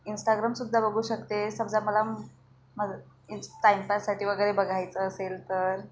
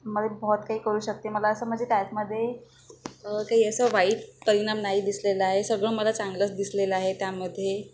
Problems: background sounds at intervals